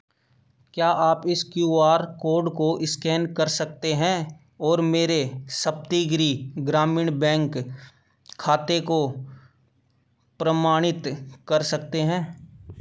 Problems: none marked